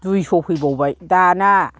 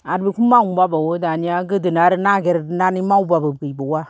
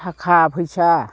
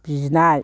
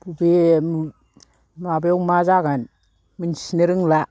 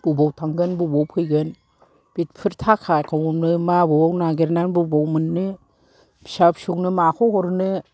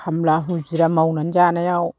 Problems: low volume